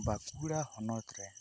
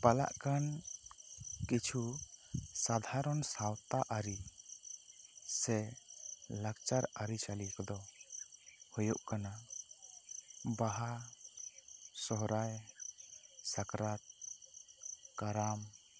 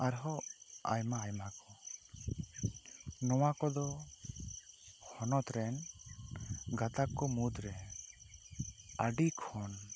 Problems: low volume